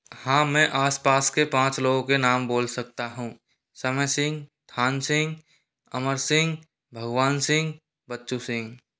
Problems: none marked